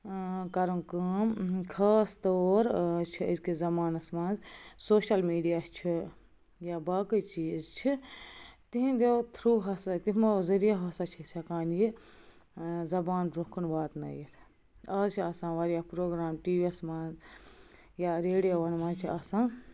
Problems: background sounds at intervals